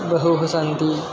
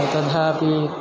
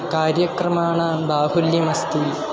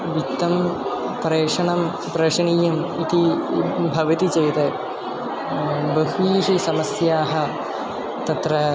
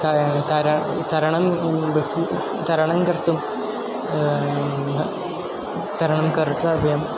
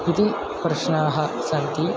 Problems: background sounds at intervals